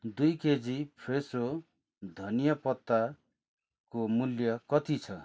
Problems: constant background noise